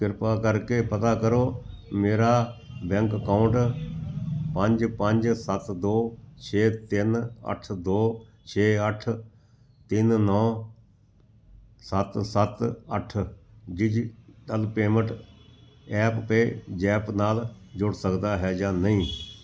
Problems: none marked